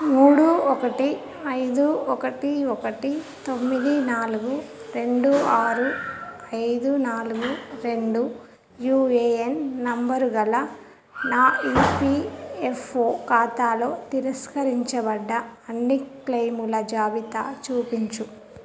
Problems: background sounds at intervals, continuous background conversations